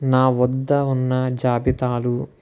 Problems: none marked